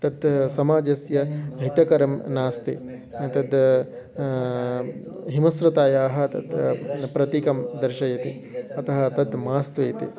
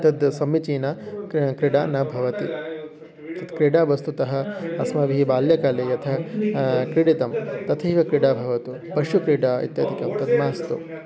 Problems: continuous background conversations